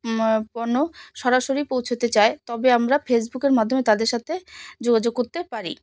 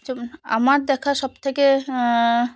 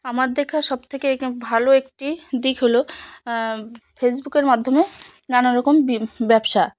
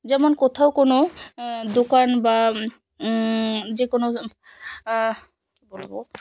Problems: constant background noise